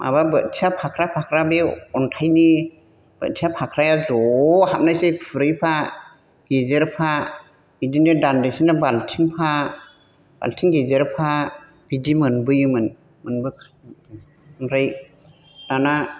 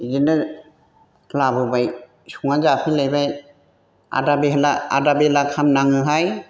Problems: none marked